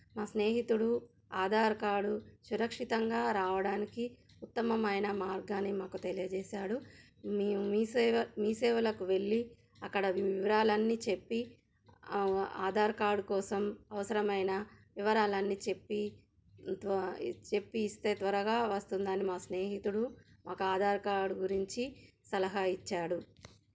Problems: background sounds at intervals